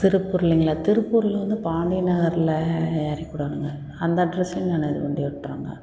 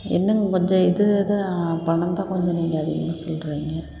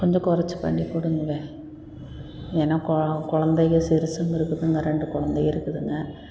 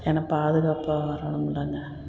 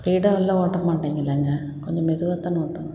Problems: background sounds at intervals